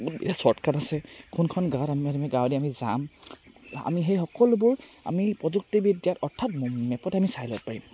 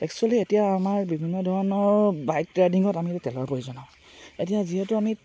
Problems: none marked